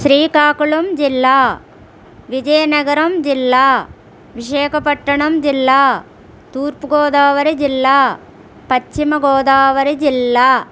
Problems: none marked